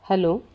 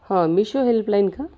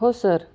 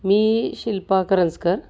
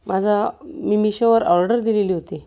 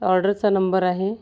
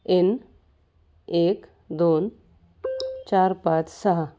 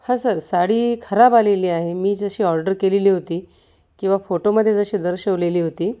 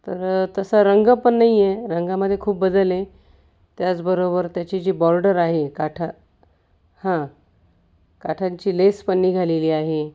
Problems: none marked